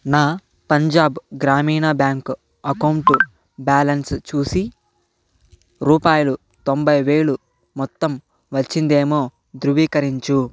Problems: none marked